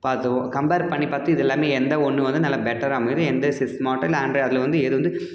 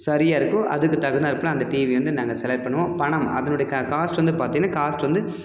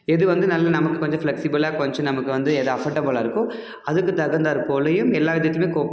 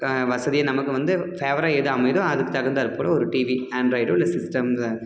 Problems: none marked